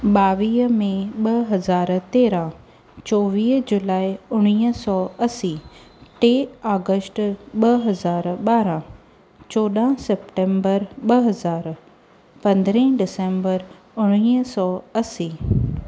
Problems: none marked